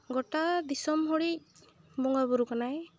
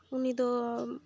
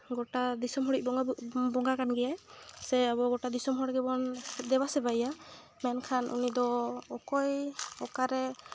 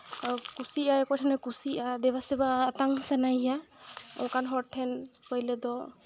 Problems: background sounds at intervals